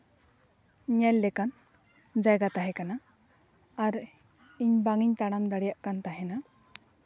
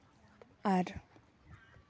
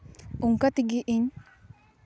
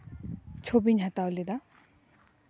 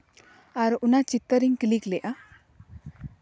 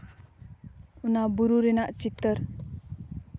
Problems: background sounds at intervals